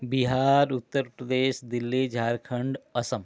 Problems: constant background noise